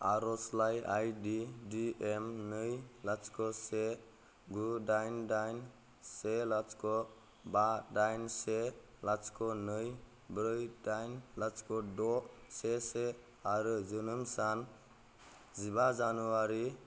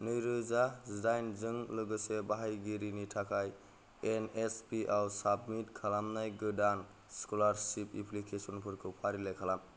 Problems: low volume